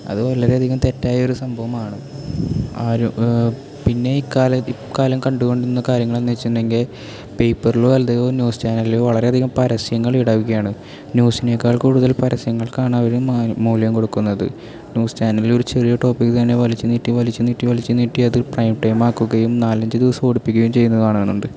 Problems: none marked